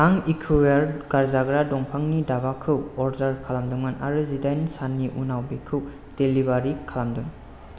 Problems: constant background noise